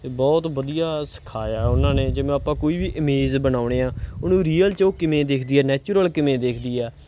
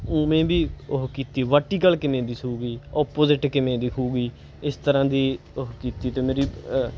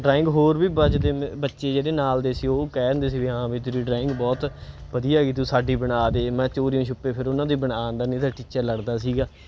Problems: none marked